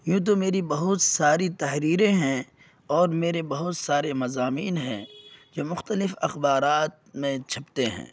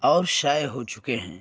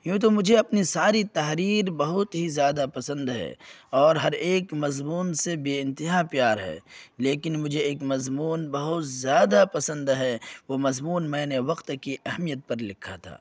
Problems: none marked